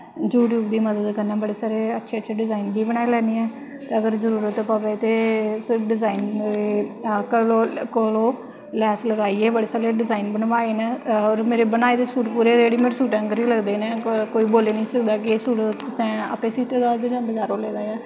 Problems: constant background noise